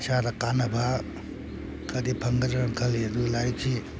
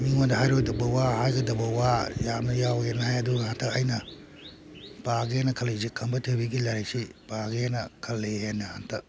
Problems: background sounds at intervals